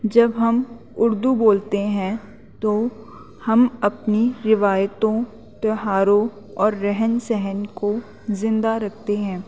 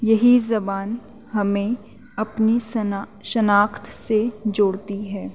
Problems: constant background noise